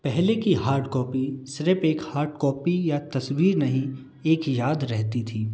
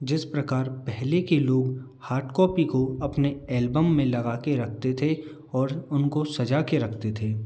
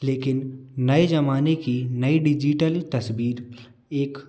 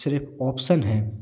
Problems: none marked